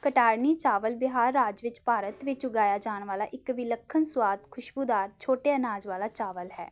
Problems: background sounds at intervals